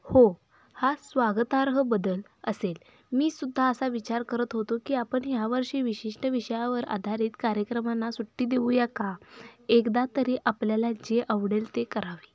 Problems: none marked